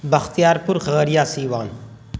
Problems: constant background noise